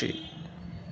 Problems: constant background noise